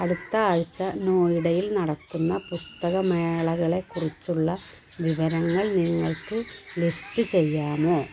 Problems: constant background noise